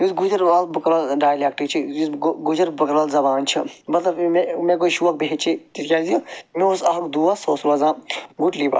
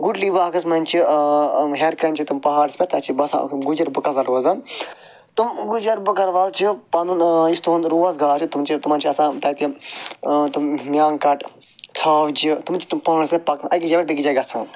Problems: none marked